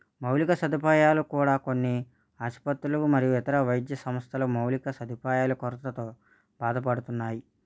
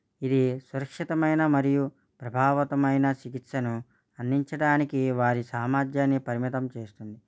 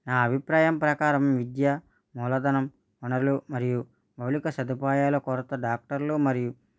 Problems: none marked